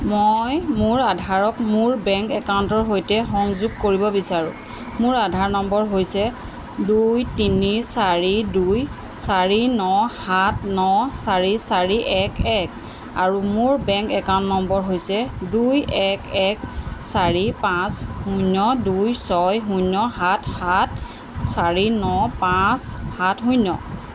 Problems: constant background noise